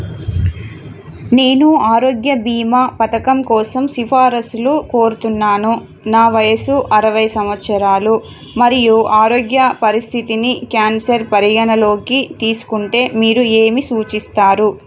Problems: background sounds at intervals